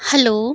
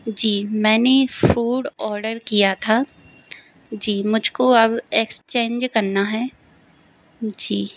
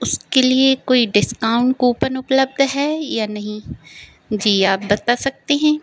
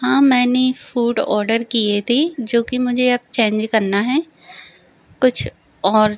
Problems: none marked